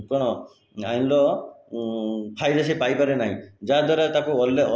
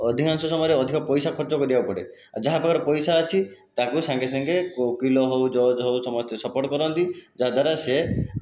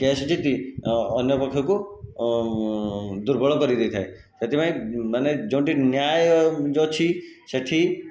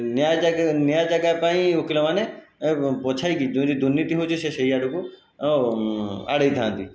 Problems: background sounds at intervals